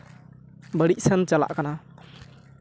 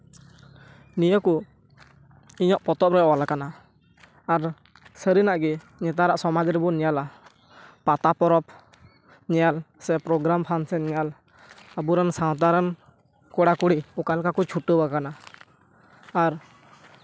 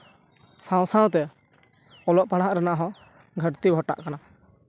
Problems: constant background noise, background conversations at intervals